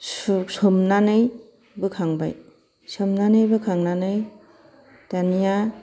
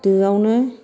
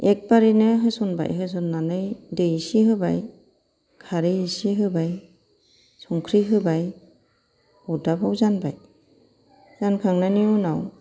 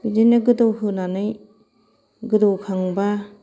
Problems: background sounds at intervals